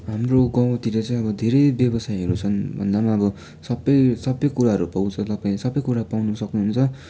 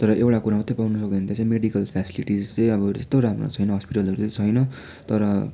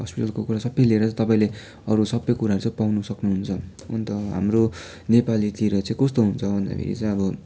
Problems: constant background noise